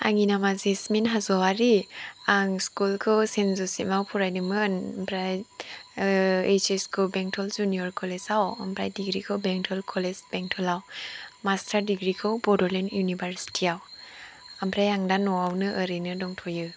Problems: low volume